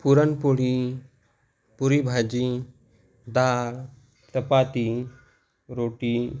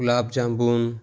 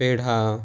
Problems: none marked